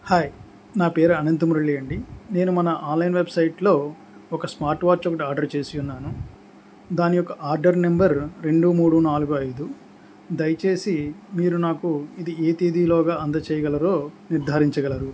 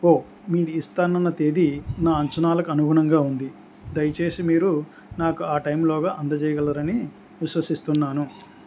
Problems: constant background noise